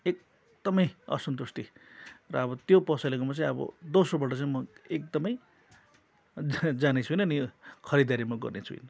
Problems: constant background noise